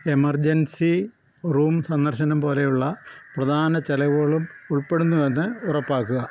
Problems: background sounds at intervals